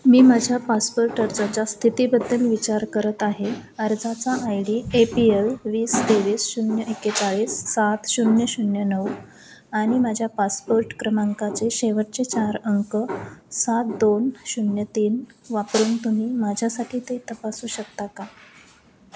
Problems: none marked